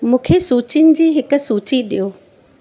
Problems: constant background noise